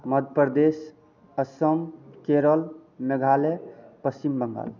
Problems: constant background noise